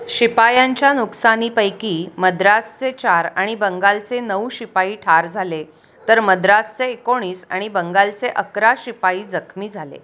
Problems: none marked